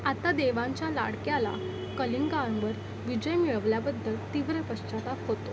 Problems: constant background noise, background conversations at intervals